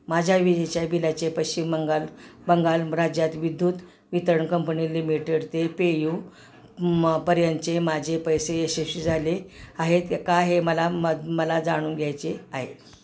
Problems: constant background noise